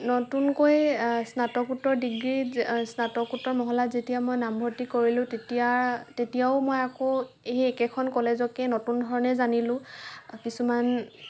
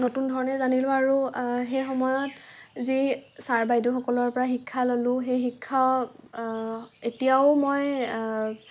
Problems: none marked